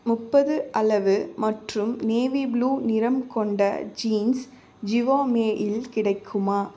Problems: none marked